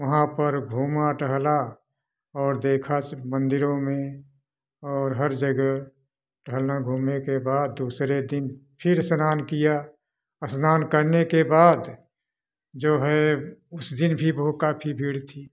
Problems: constant background noise